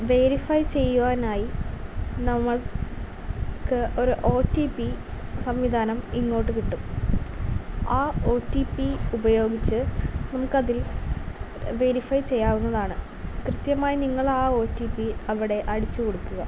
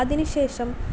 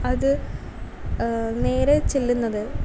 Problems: none marked